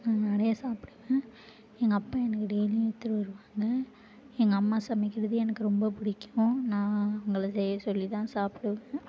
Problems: low volume